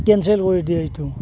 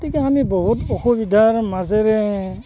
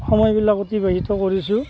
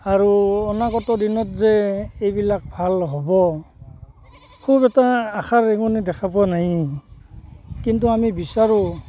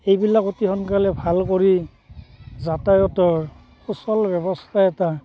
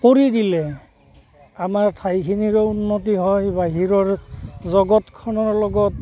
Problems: constant background noise